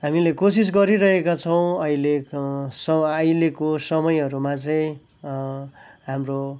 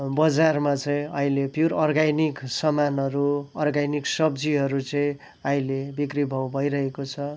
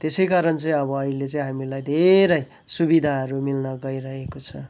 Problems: background sounds at intervals